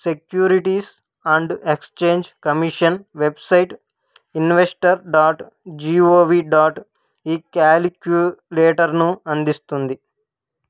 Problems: none marked